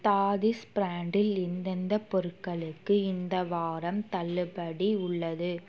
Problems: background sounds at intervals